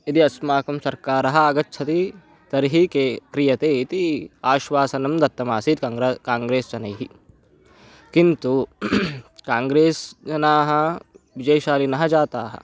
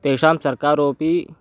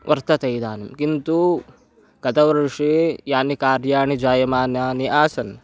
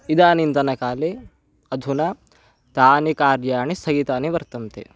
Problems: background sounds at intervals